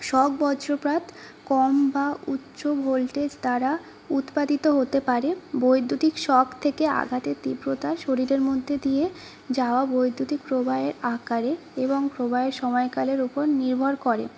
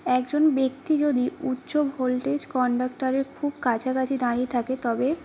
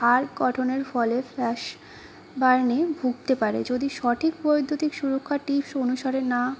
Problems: constant background noise